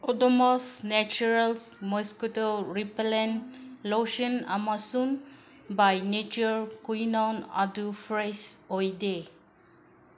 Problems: background sounds at intervals